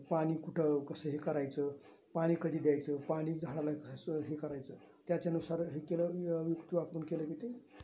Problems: none marked